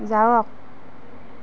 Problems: constant background noise